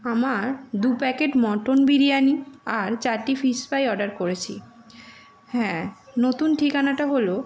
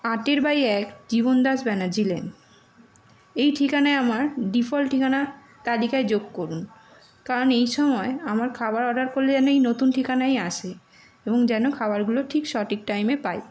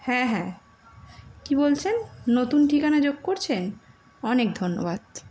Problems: constant background noise, continuous background conversations